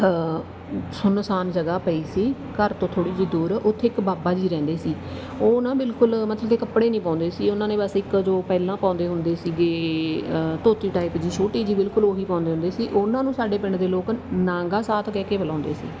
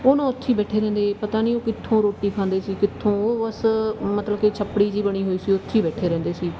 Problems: none marked